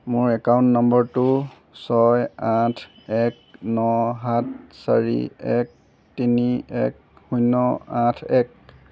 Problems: none marked